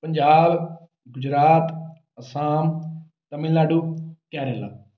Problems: none marked